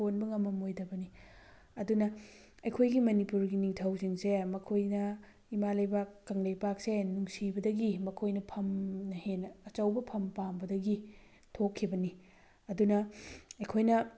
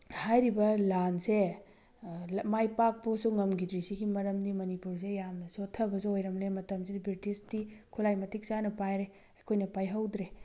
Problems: background sounds at intervals